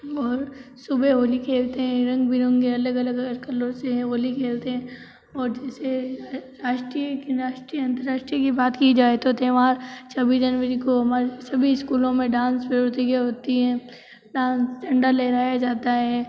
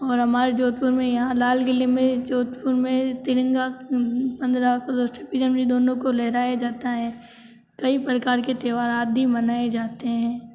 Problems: none marked